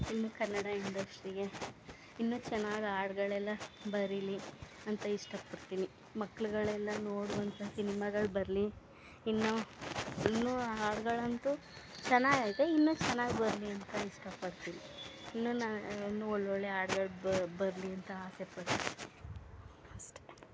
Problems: background sounds at intervals